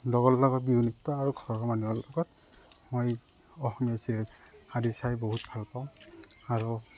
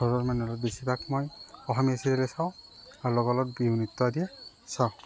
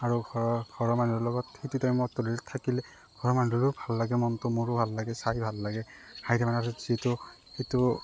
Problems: none marked